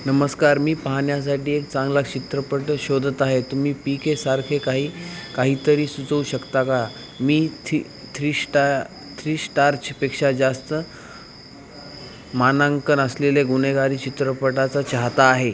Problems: none marked